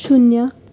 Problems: none marked